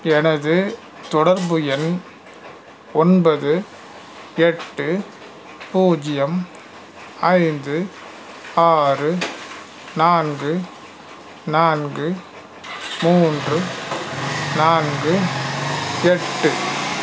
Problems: background sounds at intervals